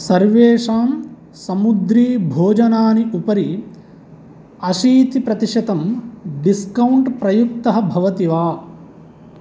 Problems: none marked